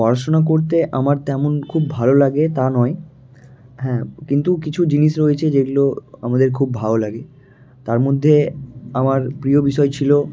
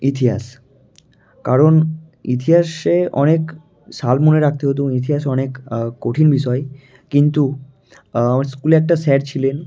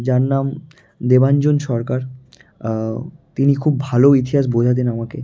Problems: none marked